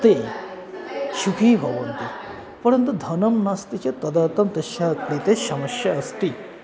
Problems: constant background noise